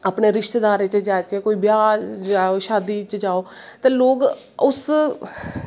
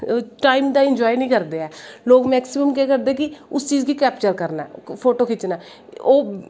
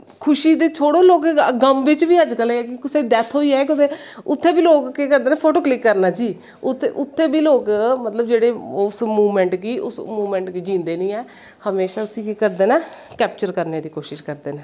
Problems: echo